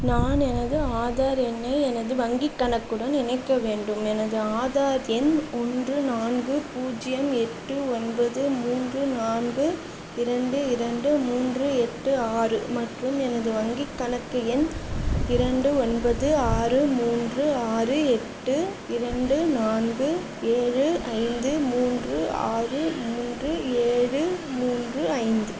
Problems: constant background noise, background conversations at intervals